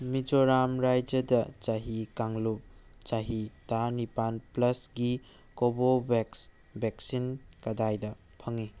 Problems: background sounds at intervals